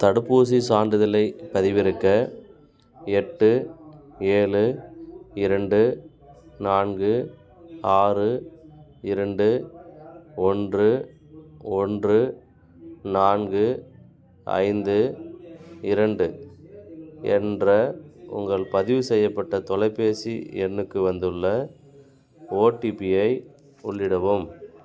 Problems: constant background noise